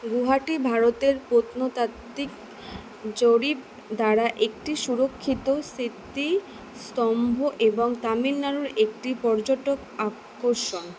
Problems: constant background noise